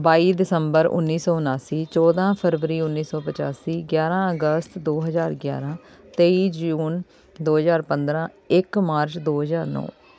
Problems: continuous background conversations